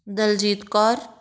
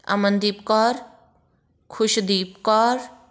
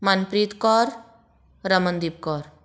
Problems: none marked